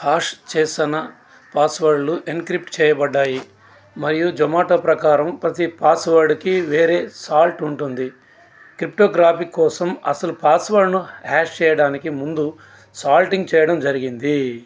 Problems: constant background noise, background conversations at intervals